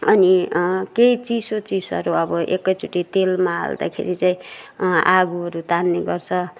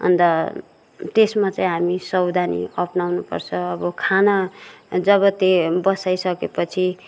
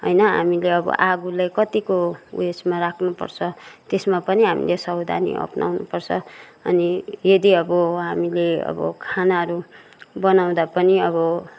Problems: background sounds at intervals